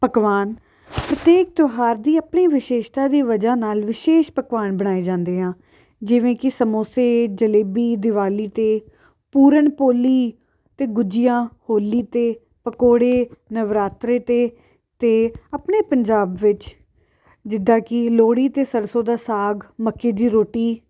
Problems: background sounds at intervals